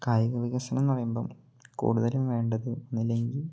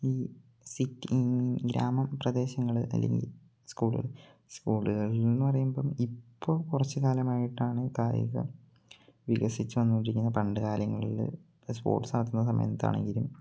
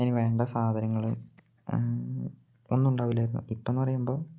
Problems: low volume